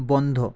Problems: low volume